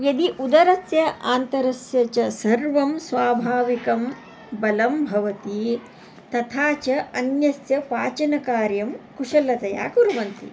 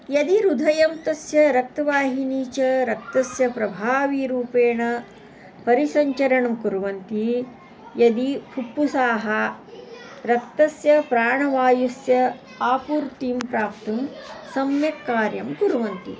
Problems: constant background noise